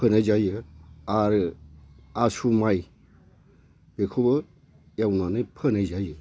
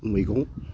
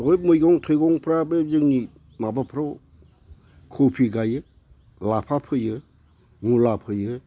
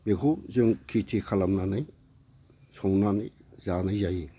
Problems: constant background noise